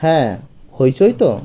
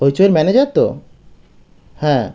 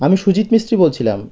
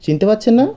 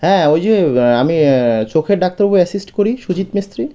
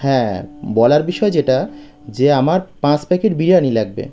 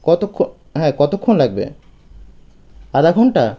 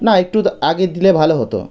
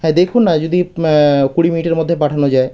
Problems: background sounds at intervals